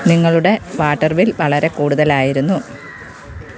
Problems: constant background noise